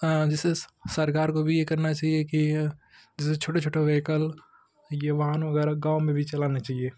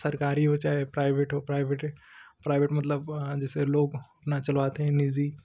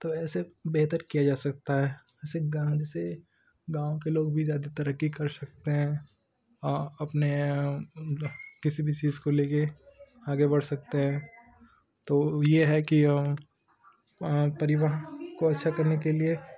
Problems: constant background noise